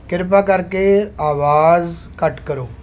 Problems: none marked